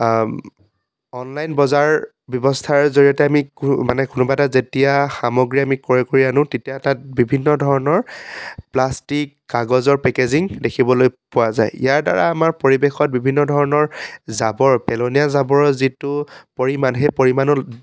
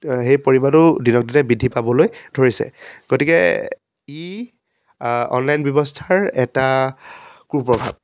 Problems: none marked